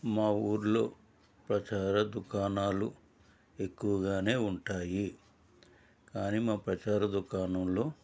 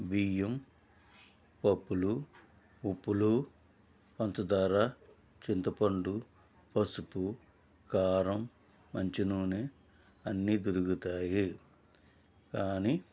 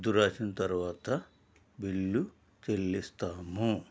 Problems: none marked